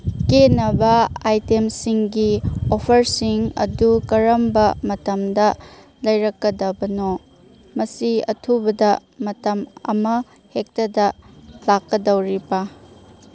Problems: background sounds at intervals